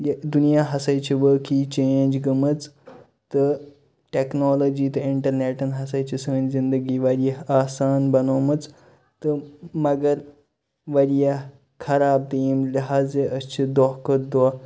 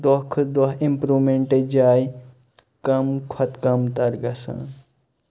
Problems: constant background noise